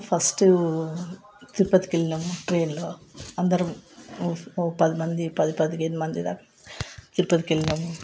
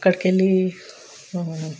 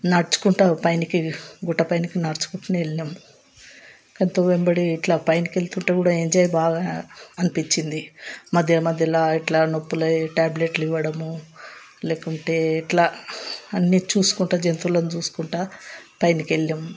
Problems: background sounds at intervals, background conversations at intervals